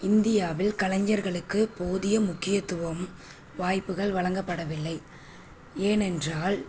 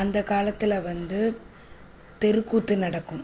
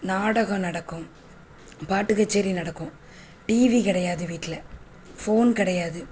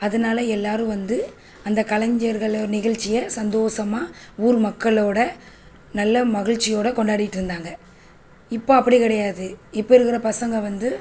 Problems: constant background noise